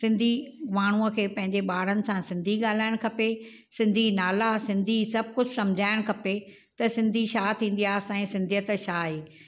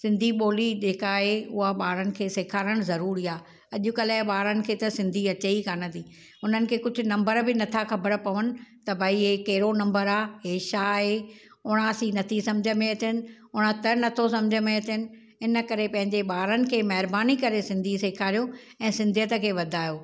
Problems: none marked